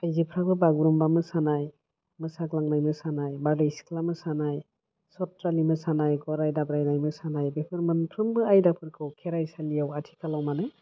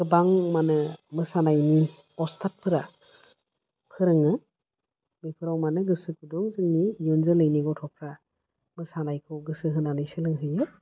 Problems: low volume